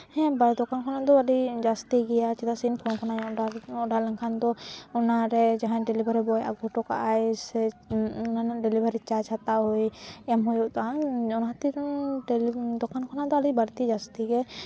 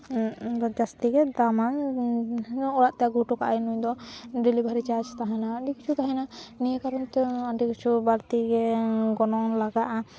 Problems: background sounds at intervals